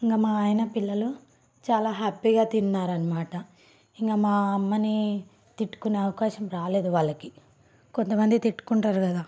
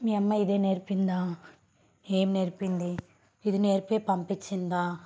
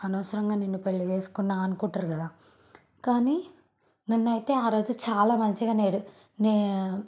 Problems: background sounds at intervals